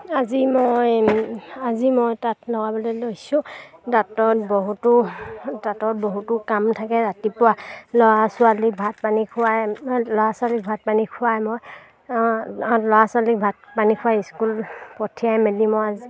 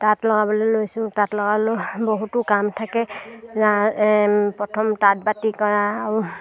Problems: none marked